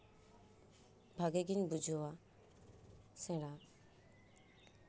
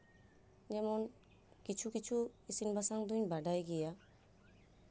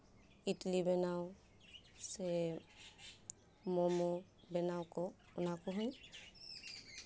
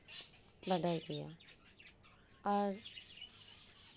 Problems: background sounds at intervals